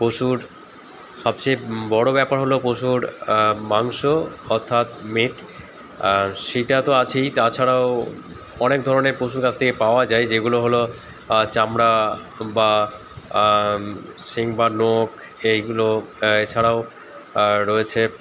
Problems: constant background noise, continuous background conversations